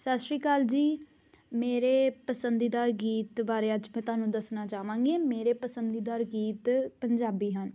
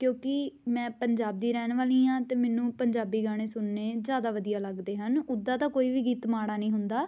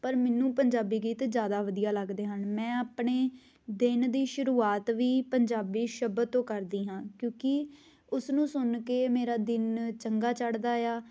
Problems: constant background noise